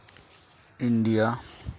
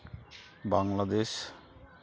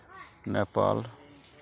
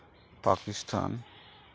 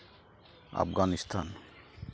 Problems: constant background noise, background conversations at intervals